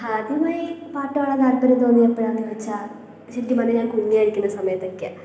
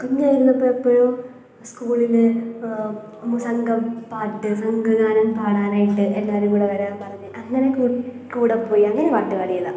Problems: none marked